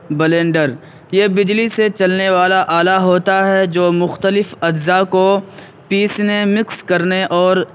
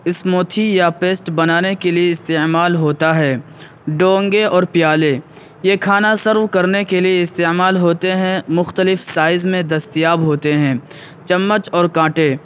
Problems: background sounds at intervals